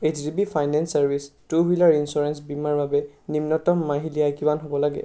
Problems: background sounds at intervals